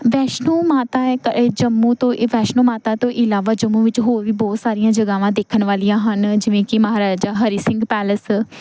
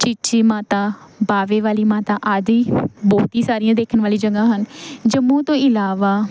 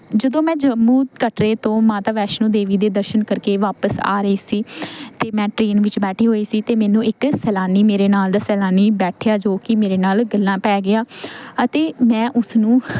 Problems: constant background noise